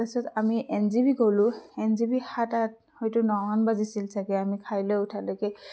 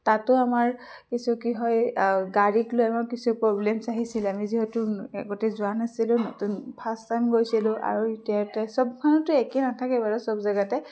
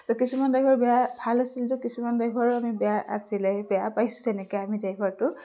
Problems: constant background noise